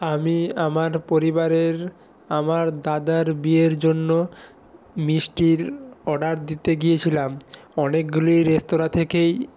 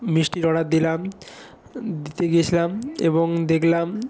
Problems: continuous background conversations